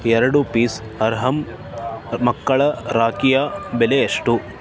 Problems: constant background noise